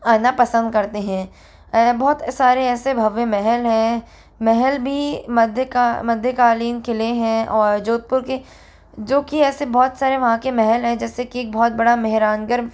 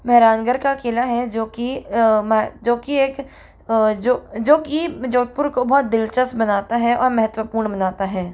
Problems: constant background noise